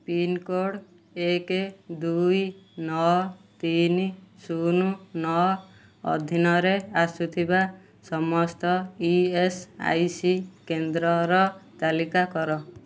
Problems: none marked